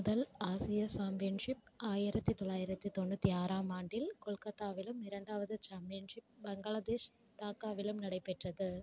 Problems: none marked